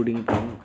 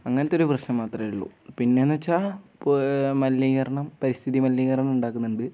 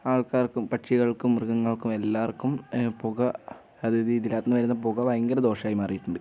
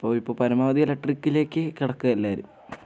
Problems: none marked